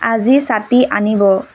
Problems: constant background noise